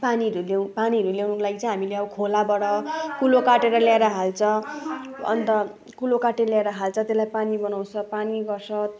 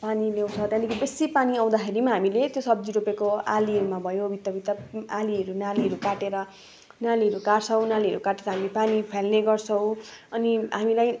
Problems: background sounds at intervals